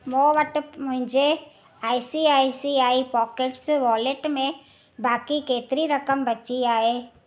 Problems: constant background noise